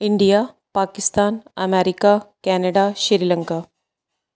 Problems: none marked